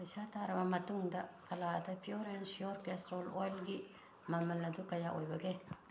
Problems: constant background noise